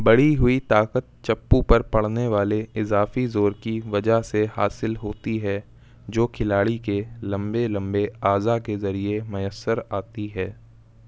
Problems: constant background noise